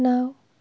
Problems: constant background noise, low volume